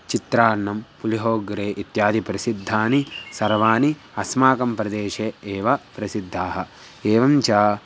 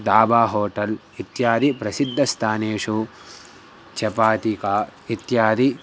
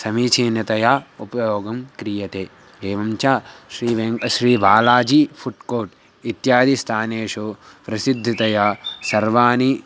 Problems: background sounds at intervals